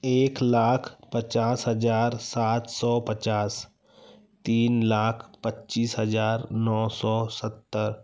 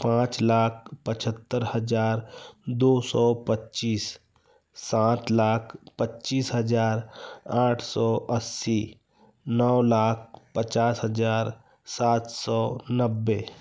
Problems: none marked